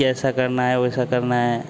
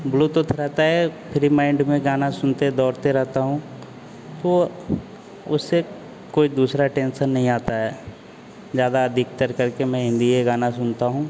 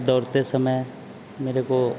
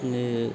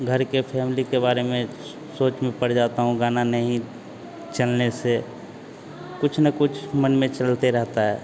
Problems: constant background noise